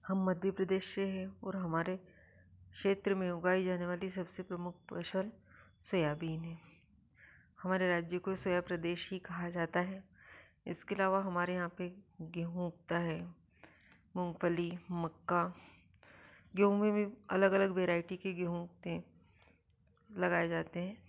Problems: low volume